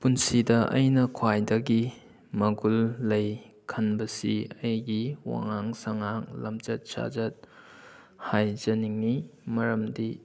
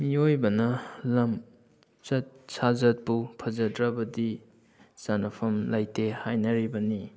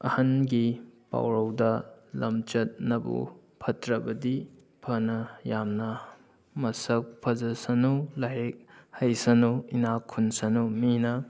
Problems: background sounds at intervals